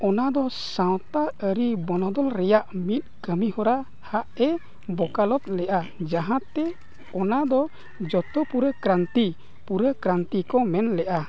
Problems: constant background noise, background conversations at intervals